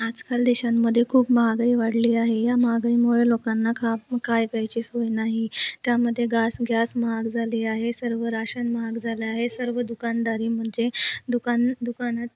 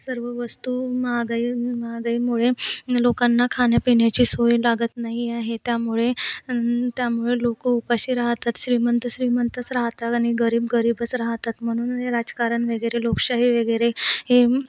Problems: none marked